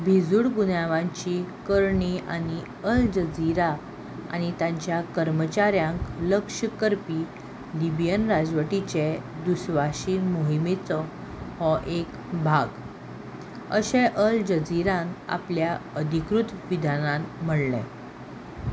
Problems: constant background noise